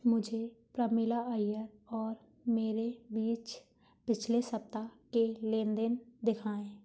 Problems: none marked